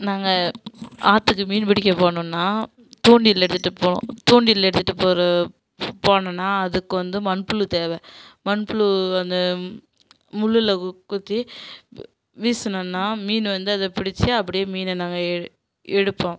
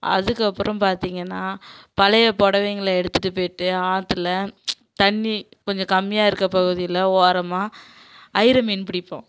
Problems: none marked